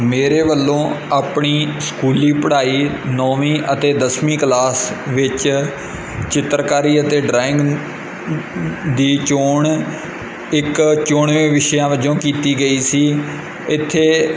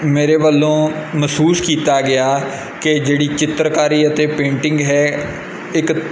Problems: constant background noise